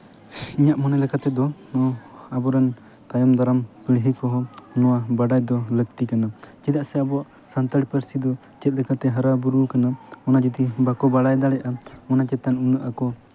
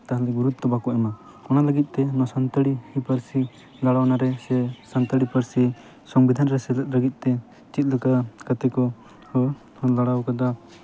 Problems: none marked